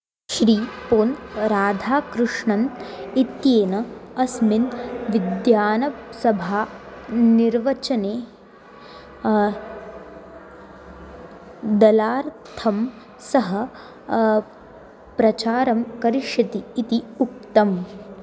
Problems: background sounds at intervals